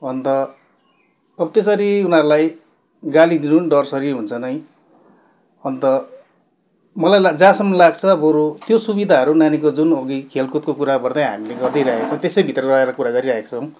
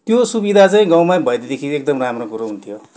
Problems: background sounds at intervals